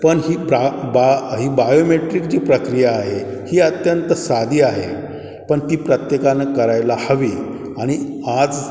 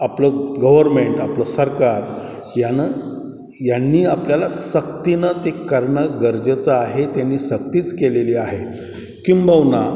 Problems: none marked